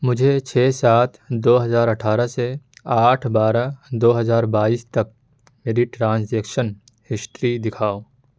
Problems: none marked